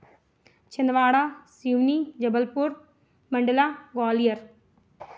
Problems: none marked